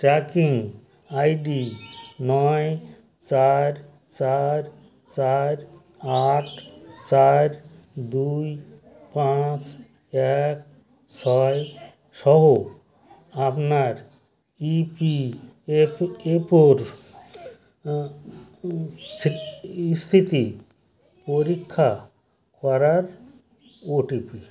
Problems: constant background noise, continuous background conversations